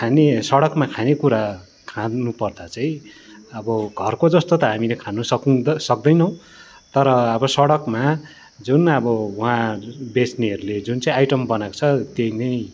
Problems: continuous background conversations